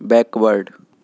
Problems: none marked